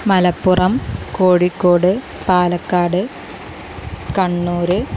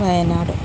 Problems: constant background noise